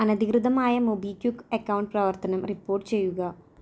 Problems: none marked